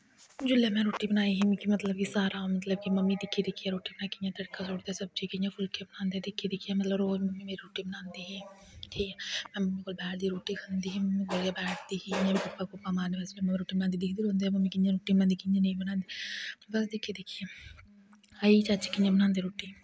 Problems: background sounds at intervals, low volume